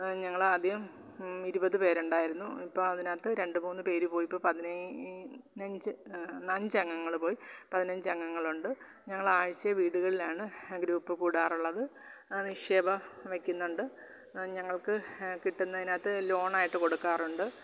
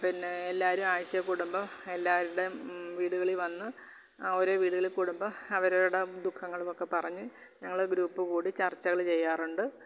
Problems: constant background noise, low volume